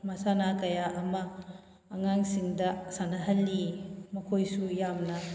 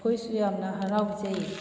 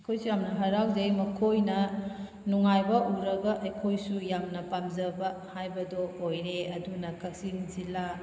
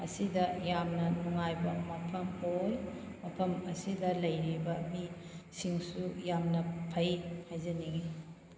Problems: background sounds at intervals